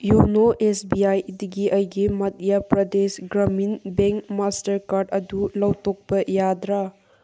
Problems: none marked